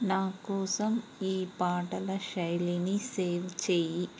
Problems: none marked